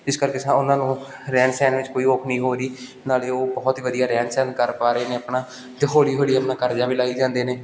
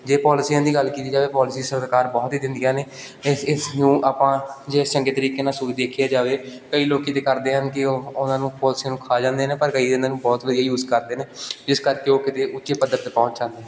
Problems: none marked